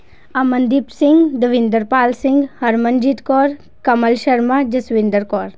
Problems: none marked